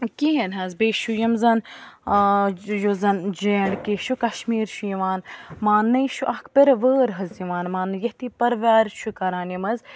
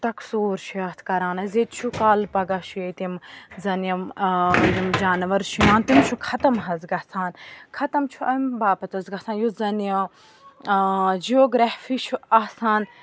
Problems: background sounds at intervals, background conversations at intervals